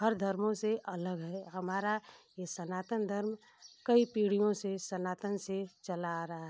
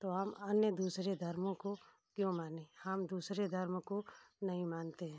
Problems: constant background noise